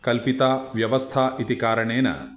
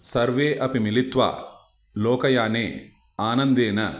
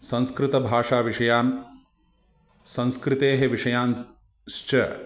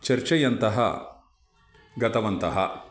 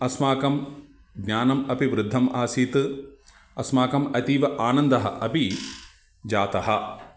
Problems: none marked